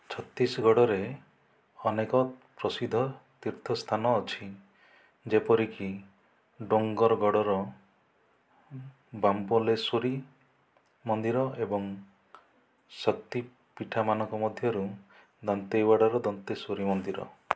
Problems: none marked